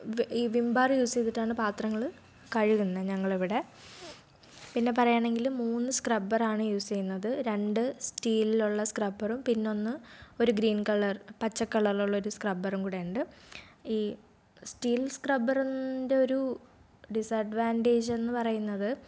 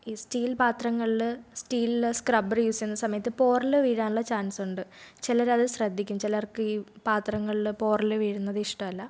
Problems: none marked